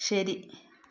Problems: none marked